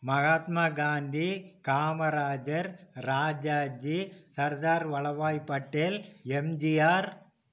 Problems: none marked